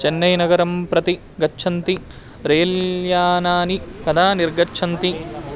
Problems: constant background noise, continuous background conversations